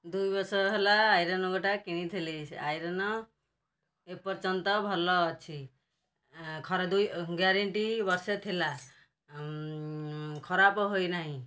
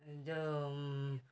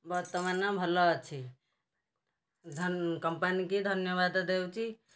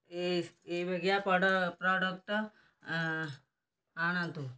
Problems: background sounds at intervals, low volume